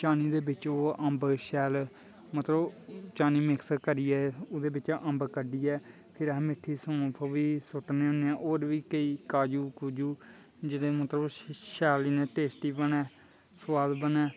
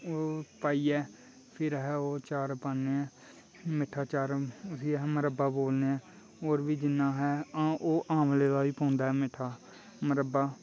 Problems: constant background noise